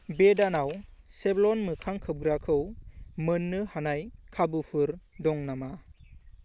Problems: constant background noise